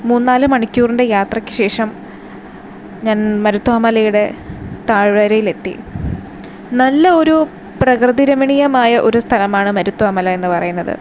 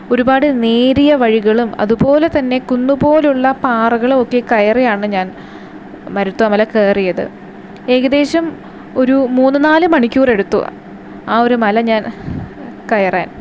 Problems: constant background noise